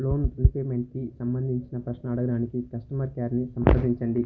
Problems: background sounds at intervals, low volume